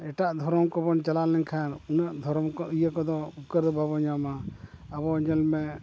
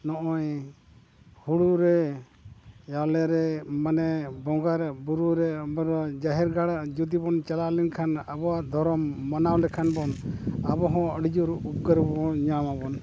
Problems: constant background noise